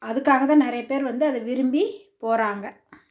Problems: none marked